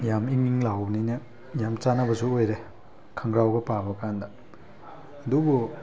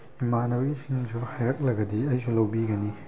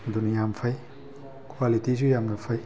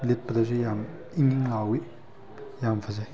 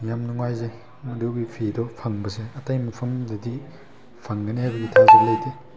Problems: background sounds at intervals